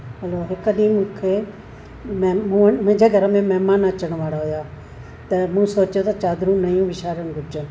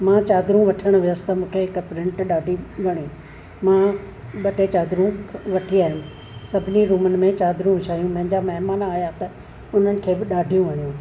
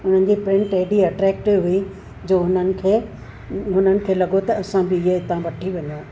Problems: constant background noise